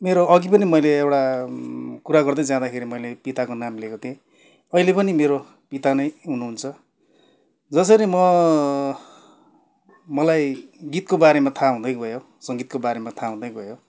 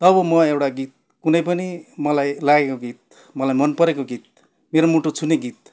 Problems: none marked